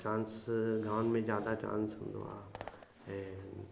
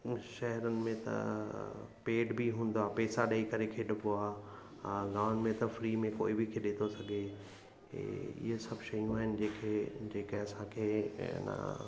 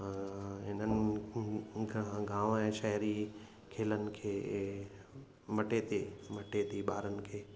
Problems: constant background noise, echo